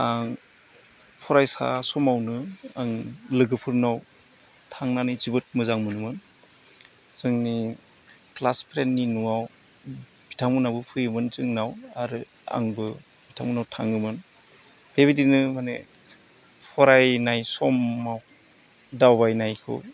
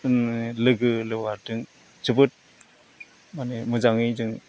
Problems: constant background noise